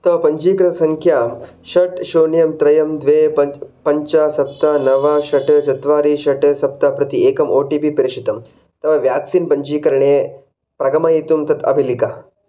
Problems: background sounds at intervals